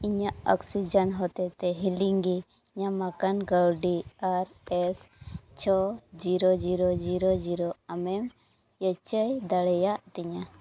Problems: none marked